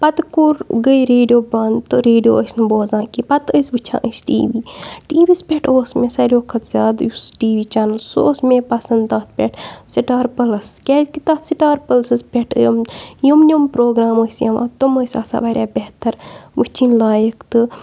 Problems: none marked